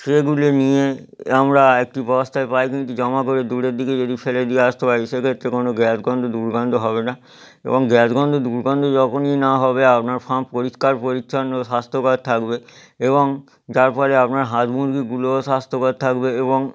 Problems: background sounds at intervals